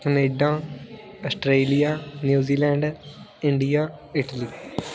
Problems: continuous background conversations